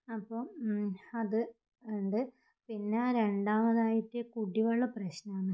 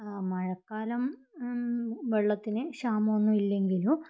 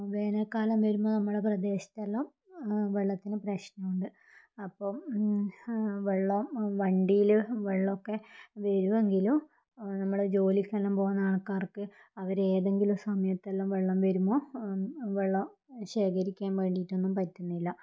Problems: low volume